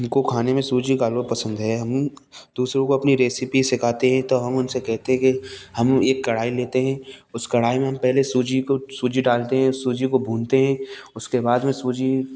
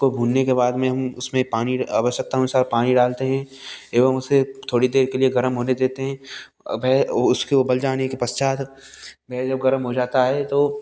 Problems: none marked